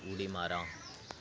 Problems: none marked